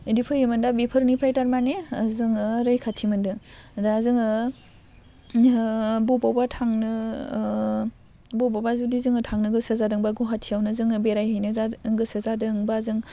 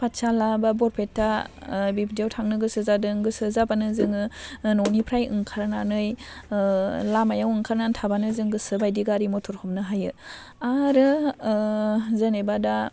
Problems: constant background noise